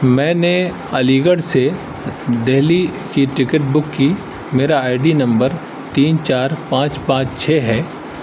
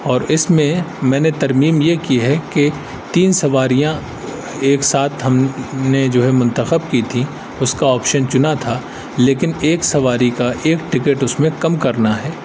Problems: constant background noise